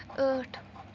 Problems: constant background noise